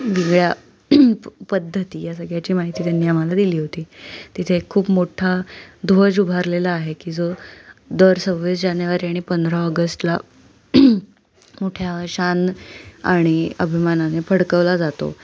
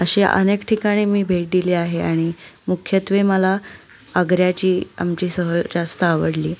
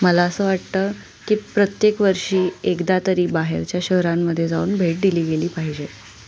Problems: constant background noise